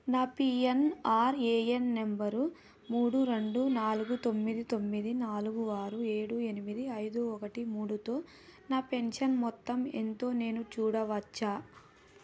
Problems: none marked